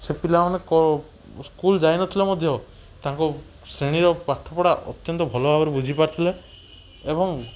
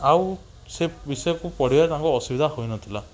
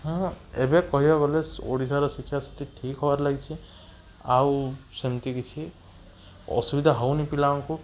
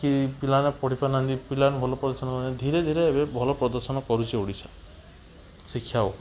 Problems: none marked